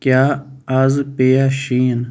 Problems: none marked